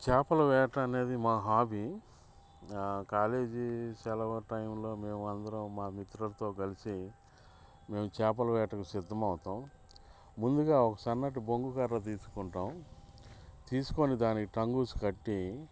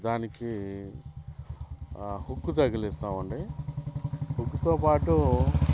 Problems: background sounds at intervals